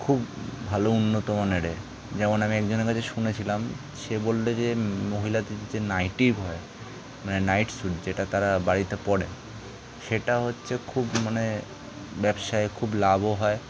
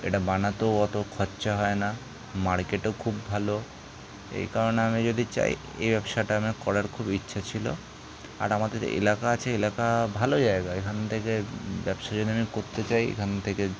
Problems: constant background noise